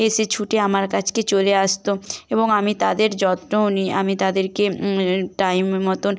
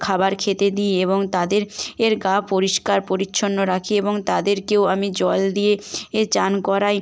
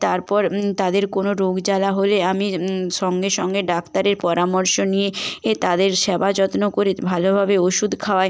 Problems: background sounds at intervals